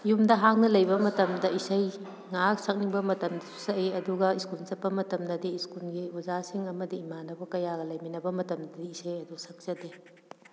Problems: background sounds at intervals